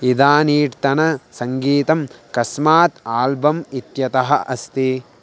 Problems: constant background noise